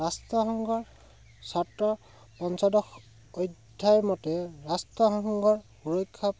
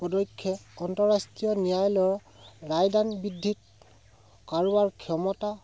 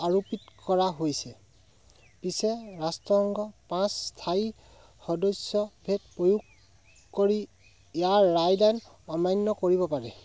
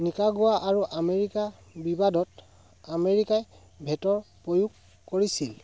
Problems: none marked